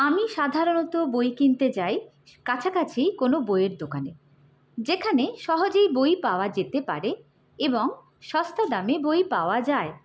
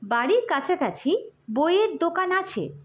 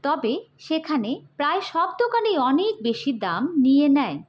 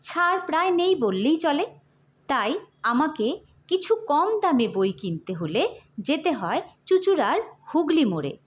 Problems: none marked